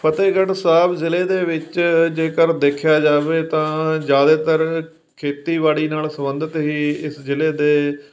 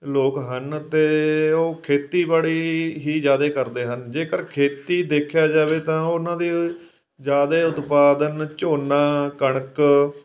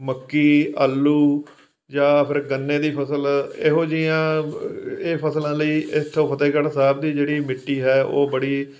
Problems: background sounds at intervals